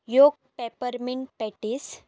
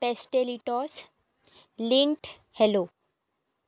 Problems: none marked